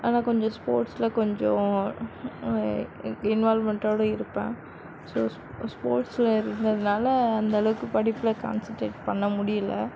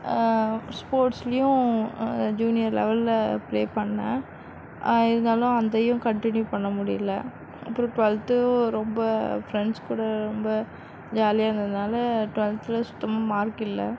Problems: background sounds at intervals